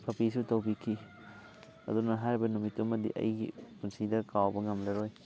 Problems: constant background noise, background conversations at intervals